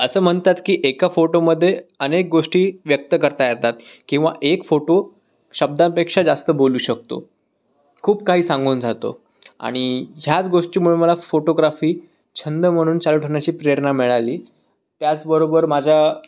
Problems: none marked